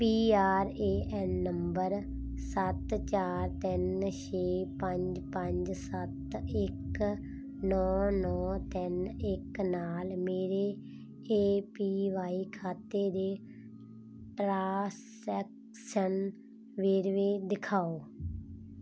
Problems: constant background noise